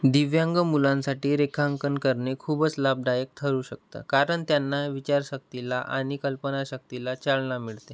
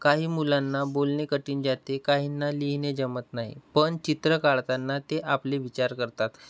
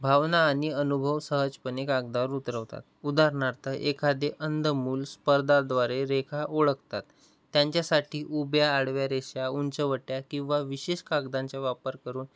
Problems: background sounds at intervals